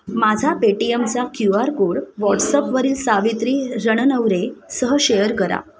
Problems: none marked